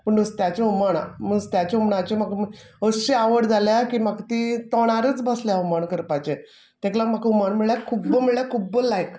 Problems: background sounds at intervals